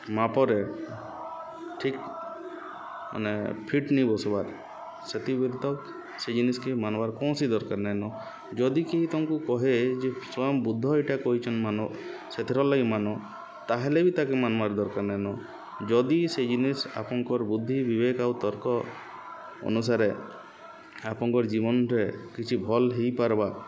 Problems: none marked